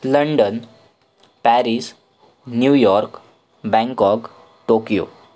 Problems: none marked